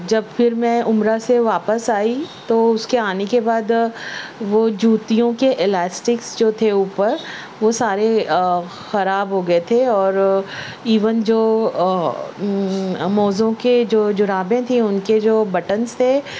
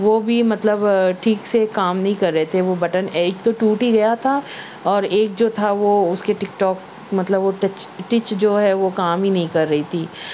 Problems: background sounds at intervals